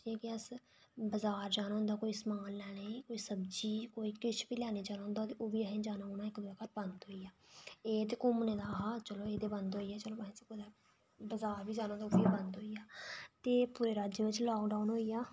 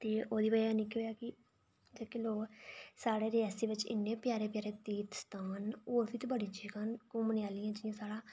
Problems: low volume